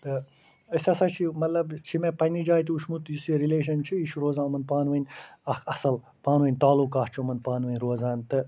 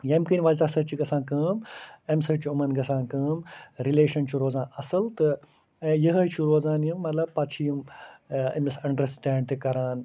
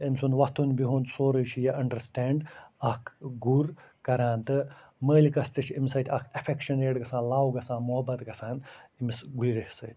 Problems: none marked